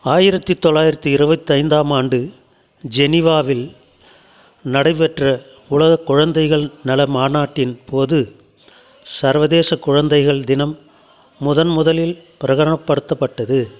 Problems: continuous background conversations